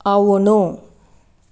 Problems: constant background noise